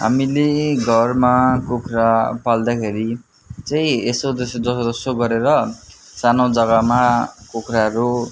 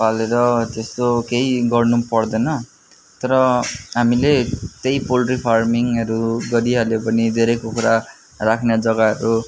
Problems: constant background noise